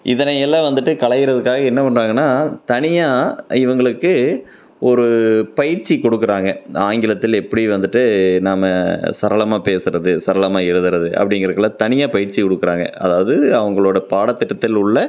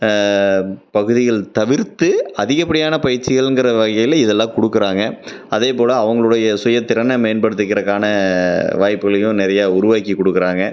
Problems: none marked